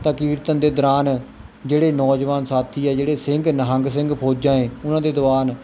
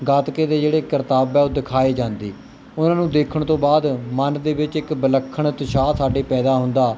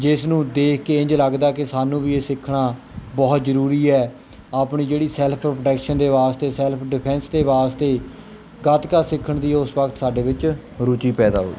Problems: background sounds at intervals